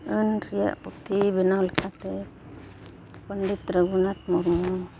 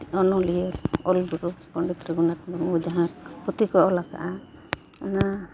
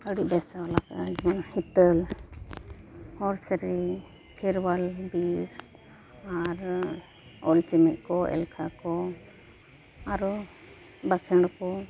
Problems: background sounds at intervals